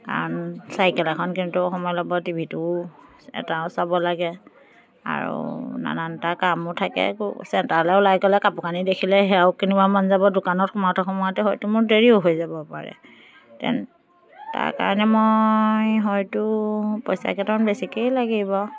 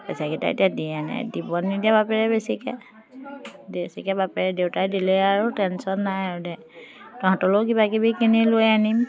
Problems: continuous background conversations